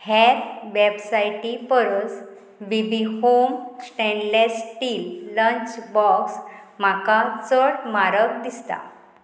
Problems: constant background noise